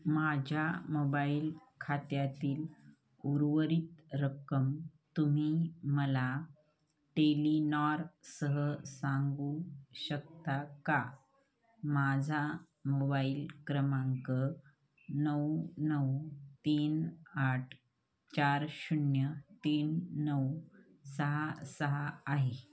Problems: background sounds at intervals, background conversations at intervals